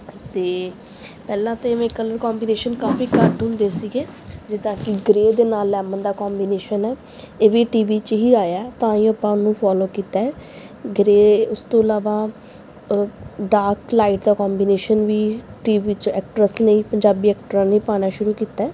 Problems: background sounds at intervals